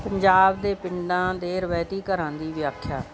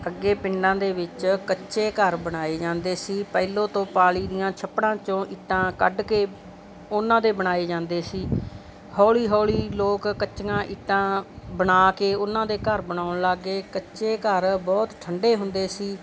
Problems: constant background noise, background conversations at intervals